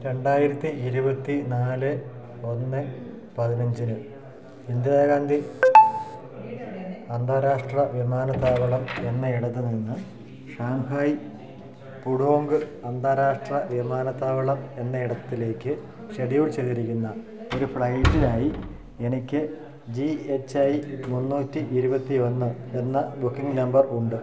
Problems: constant background noise